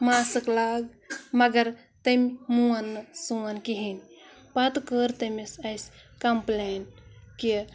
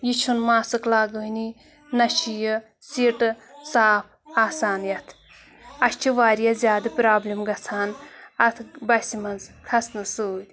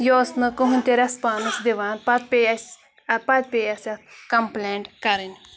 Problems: constant background noise